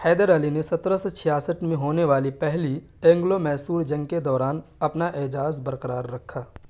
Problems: none marked